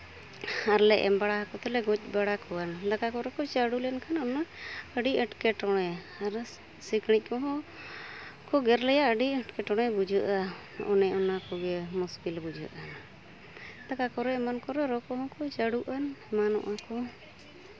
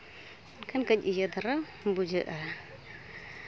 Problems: constant background noise